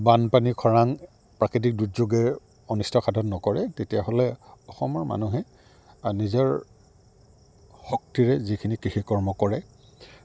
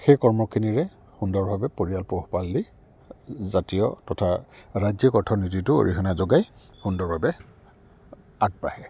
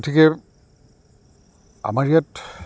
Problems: none marked